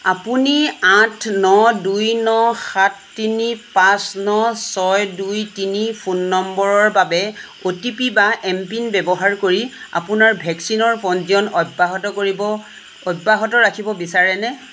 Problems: constant background noise